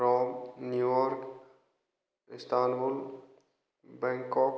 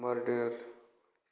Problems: none marked